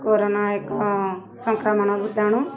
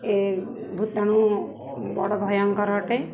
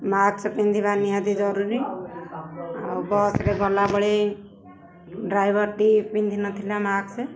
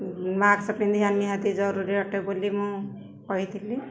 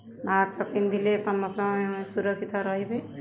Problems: constant background noise, continuous background conversations